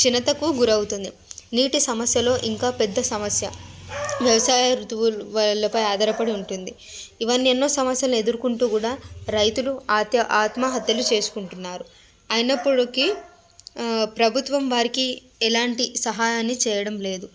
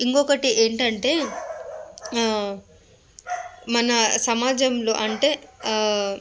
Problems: background sounds at intervals, background conversations at intervals